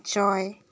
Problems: background sounds at intervals